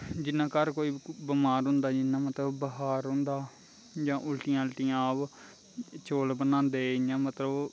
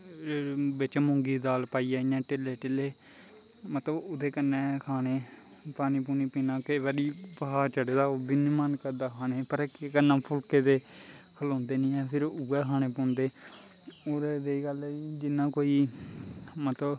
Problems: constant background noise